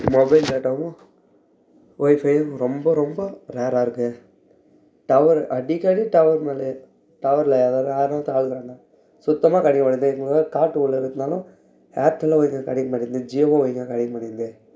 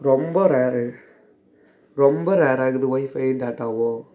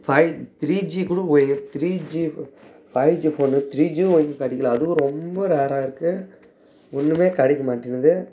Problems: background conversations at intervals